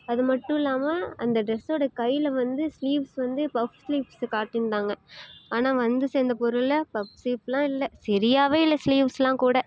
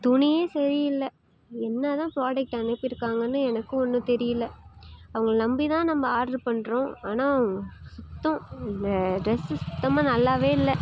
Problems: constant background noise